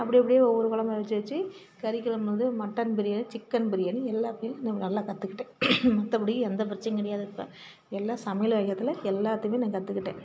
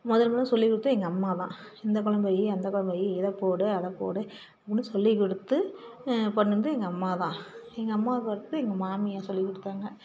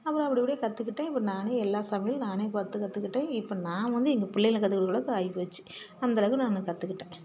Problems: background sounds at intervals, background conversations at intervals